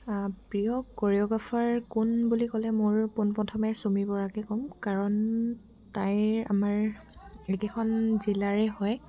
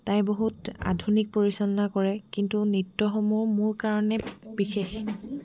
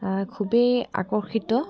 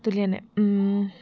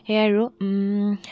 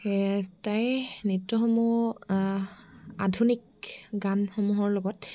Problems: background sounds at intervals